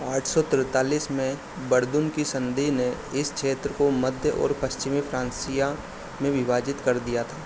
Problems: constant background noise